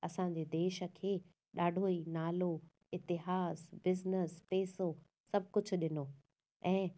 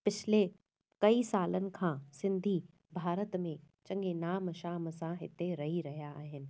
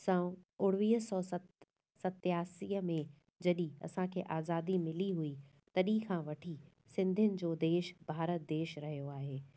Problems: none marked